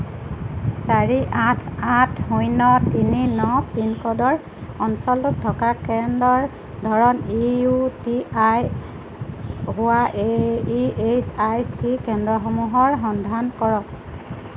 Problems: constant background noise